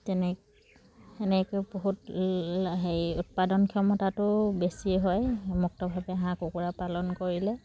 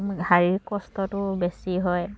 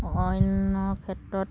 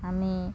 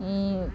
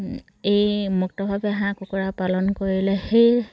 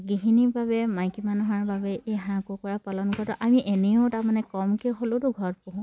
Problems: background sounds at intervals